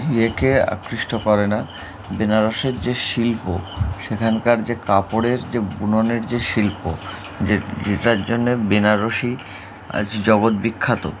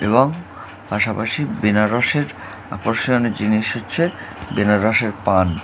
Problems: none marked